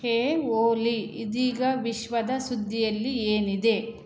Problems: none marked